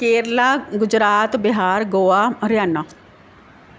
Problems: none marked